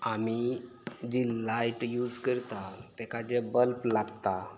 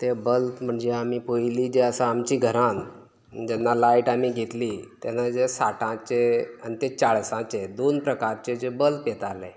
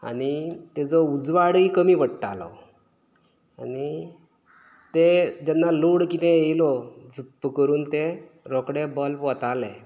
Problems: none marked